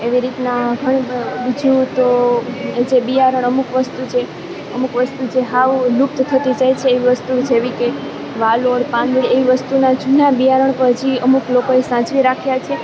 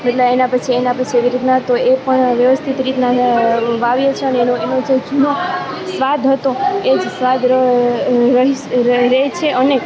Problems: background conversations at intervals